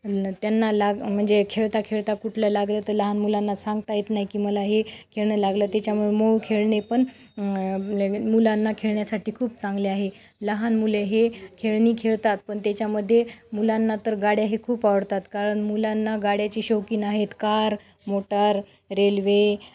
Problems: background sounds at intervals